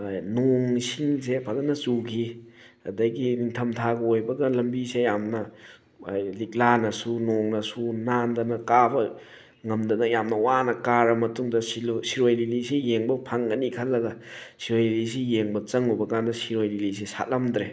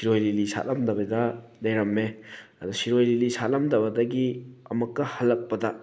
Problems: background sounds at intervals